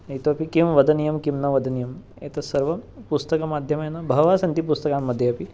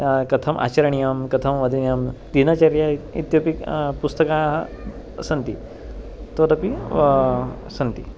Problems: background sounds at intervals